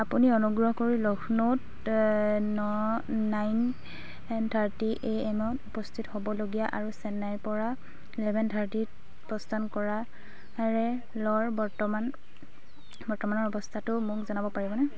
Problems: none marked